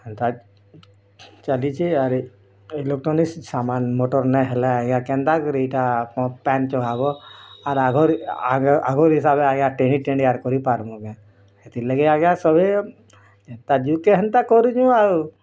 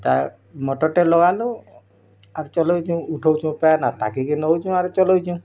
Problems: none marked